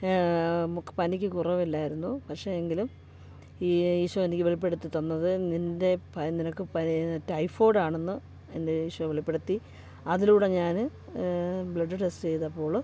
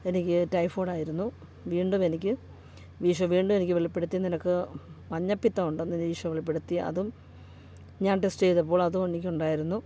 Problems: background sounds at intervals